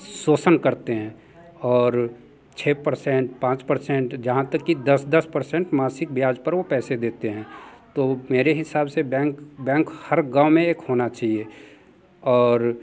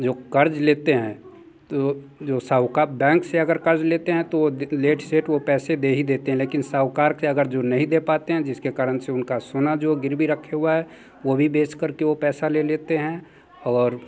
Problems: constant background noise, continuous background conversations